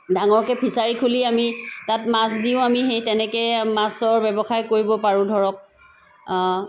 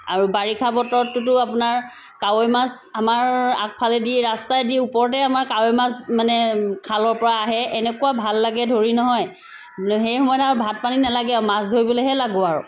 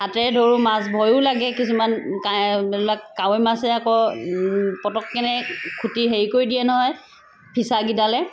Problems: constant background noise